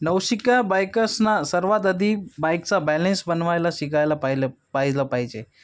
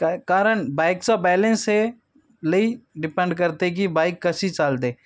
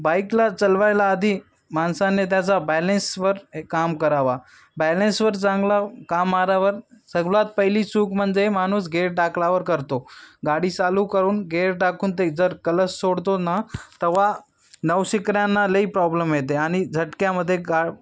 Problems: none marked